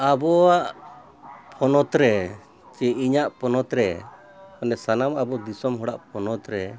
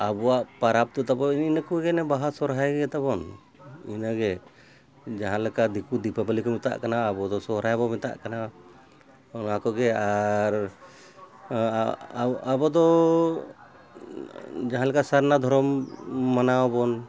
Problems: continuous background conversations